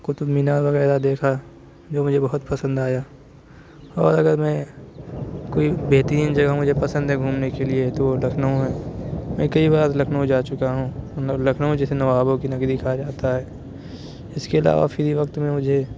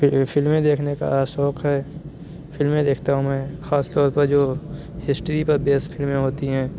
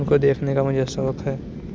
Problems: constant background noise